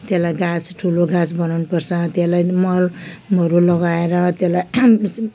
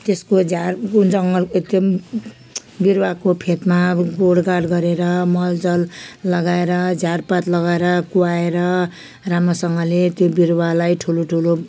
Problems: background sounds at intervals